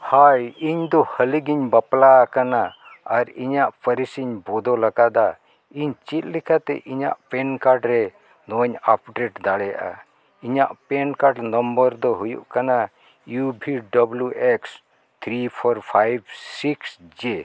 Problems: none marked